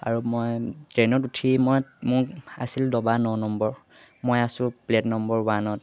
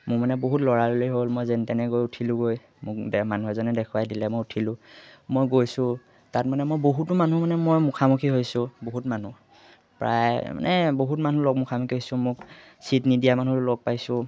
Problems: none marked